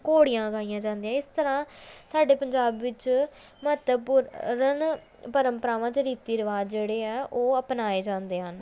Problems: none marked